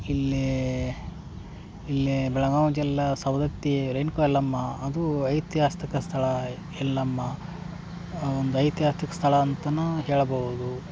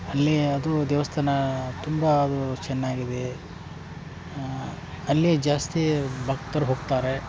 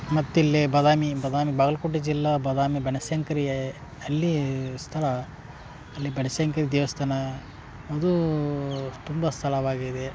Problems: background sounds at intervals